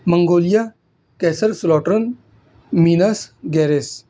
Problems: constant background noise